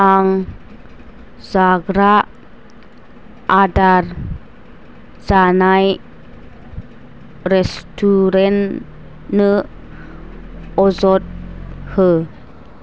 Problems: constant background noise